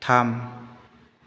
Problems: constant background noise